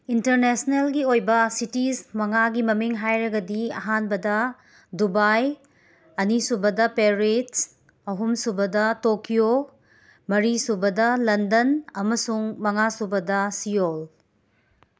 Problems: background sounds at intervals